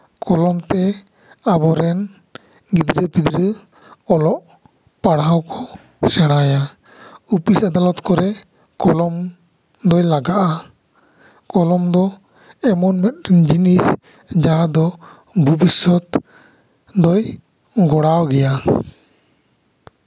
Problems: echo